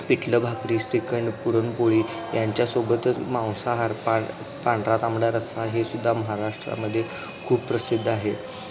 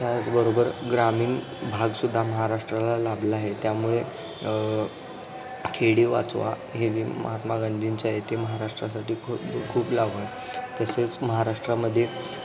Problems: constant background noise, background conversations at intervals